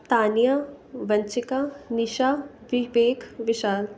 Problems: none marked